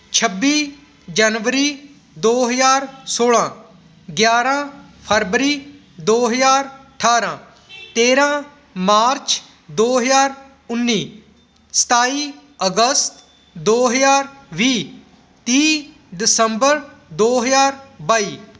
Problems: constant background noise